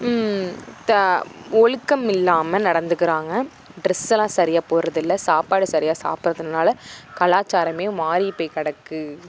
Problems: background sounds at intervals